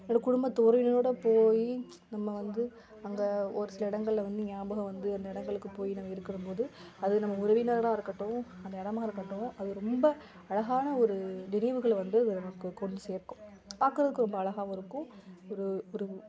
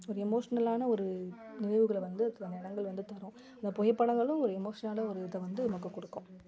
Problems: background conversations at intervals